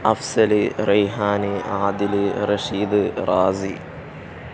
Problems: none marked